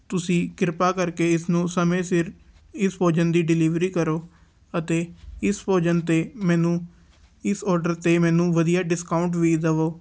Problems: none marked